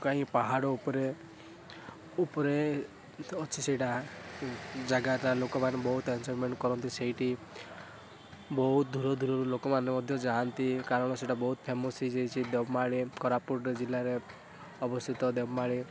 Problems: constant background noise